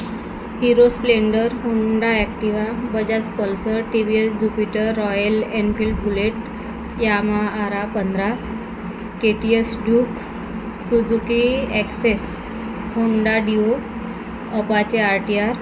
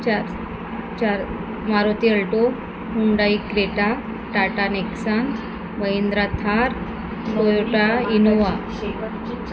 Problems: constant background noise, background conversations at intervals